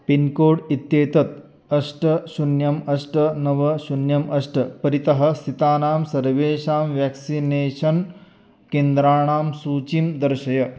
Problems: none marked